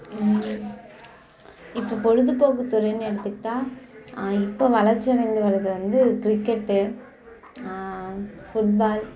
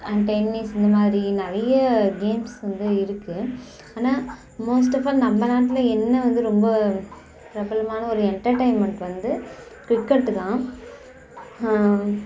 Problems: none marked